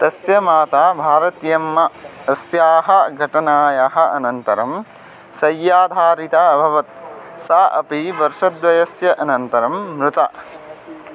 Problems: background sounds at intervals